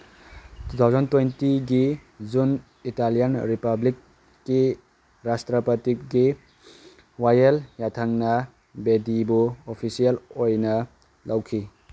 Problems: constant background noise